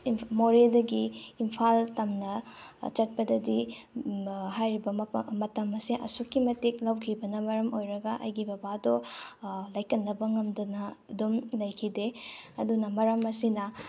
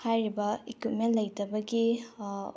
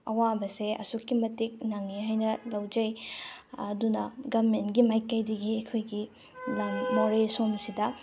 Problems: none marked